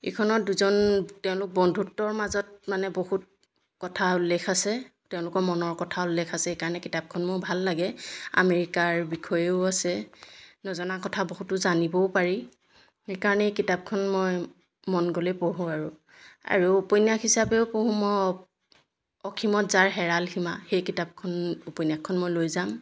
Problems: background sounds at intervals